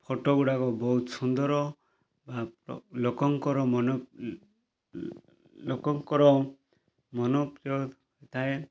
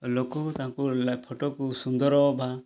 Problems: none marked